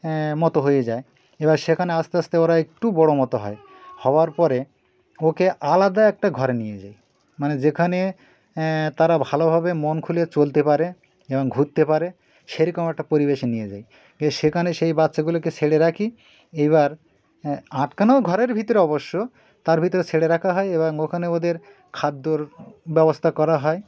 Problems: background sounds at intervals, background conversations at intervals